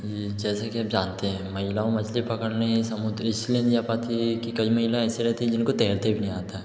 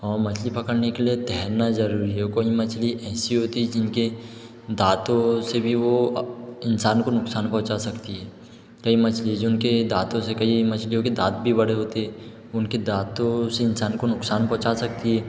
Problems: echo